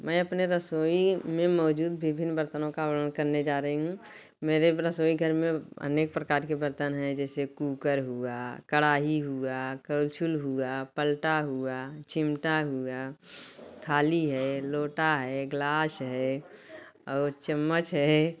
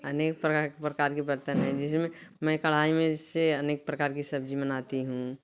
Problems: constant background noise